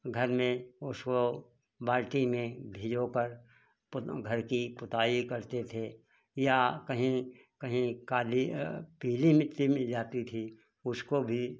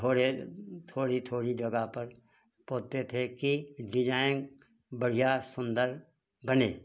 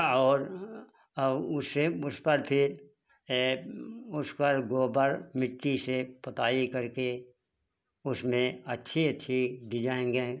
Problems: background sounds at intervals